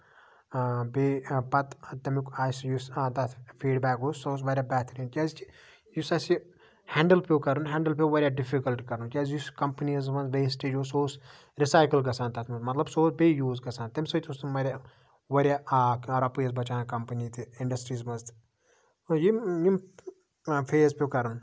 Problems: background sounds at intervals, background conversations at intervals